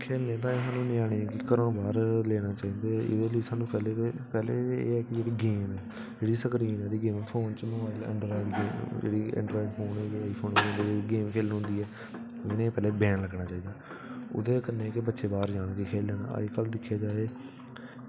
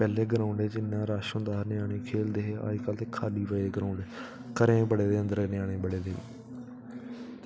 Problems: constant background noise